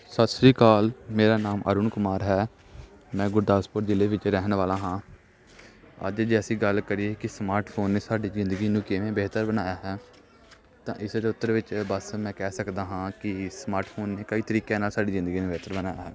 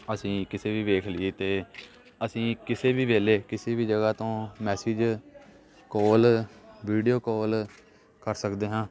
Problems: constant background noise